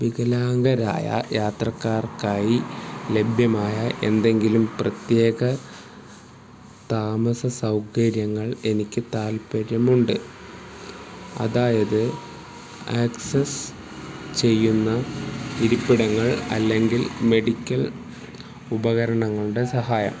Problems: none marked